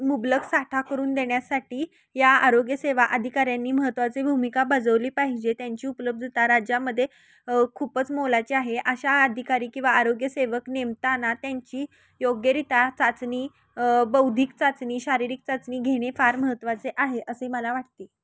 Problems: constant background noise, continuous background conversations